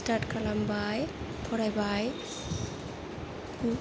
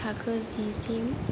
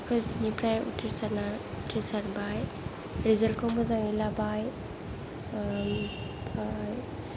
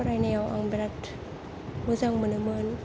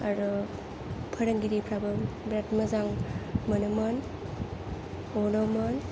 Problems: low volume